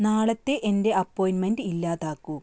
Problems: background sounds at intervals